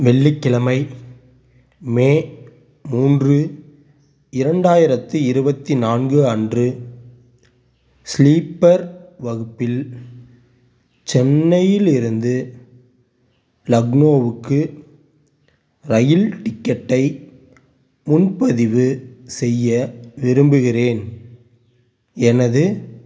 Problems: none marked